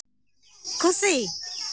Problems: constant background noise